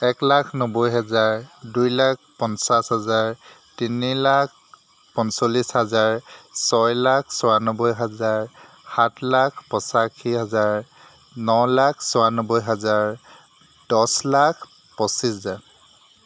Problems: none marked